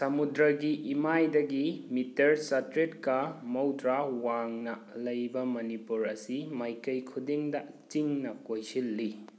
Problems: none marked